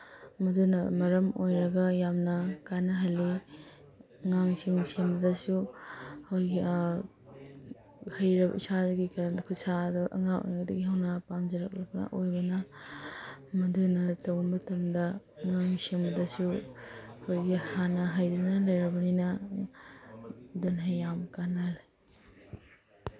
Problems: background sounds at intervals